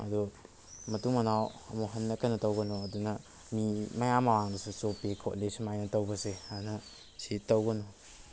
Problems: background sounds at intervals